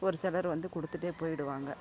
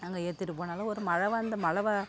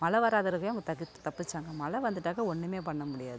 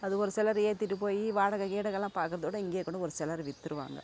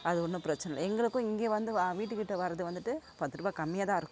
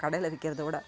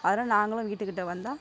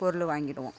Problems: constant background noise, low volume